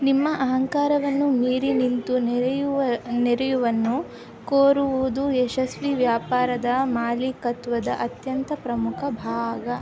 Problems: constant background noise, background conversations at intervals